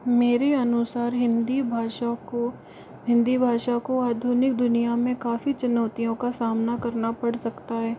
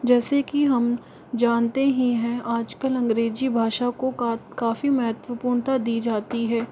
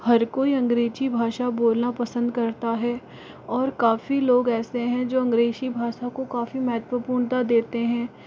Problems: constant background noise